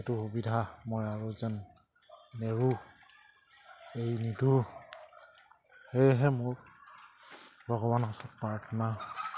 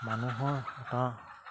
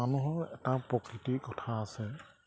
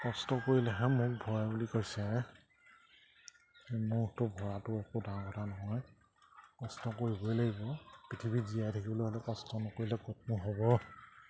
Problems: low volume